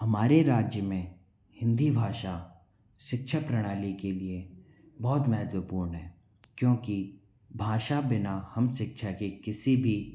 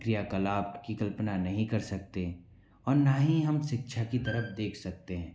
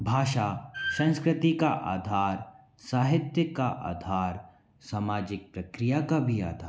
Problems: none marked